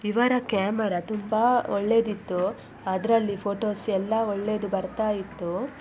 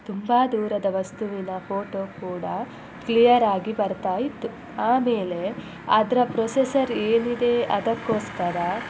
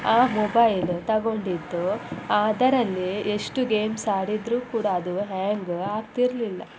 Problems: constant background noise